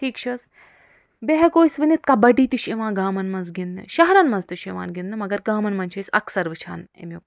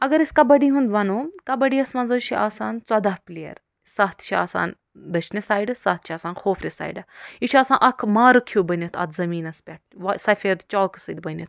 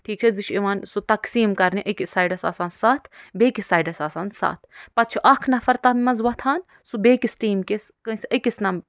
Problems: none marked